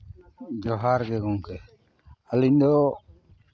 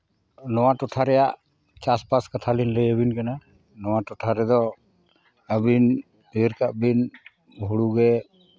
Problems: none marked